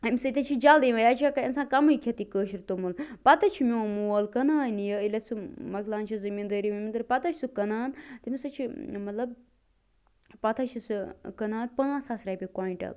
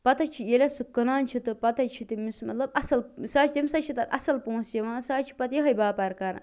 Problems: constant background noise